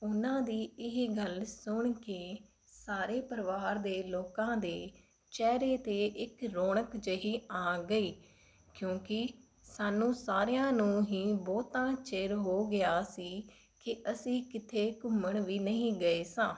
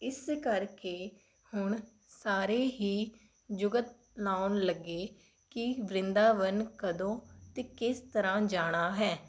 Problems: none marked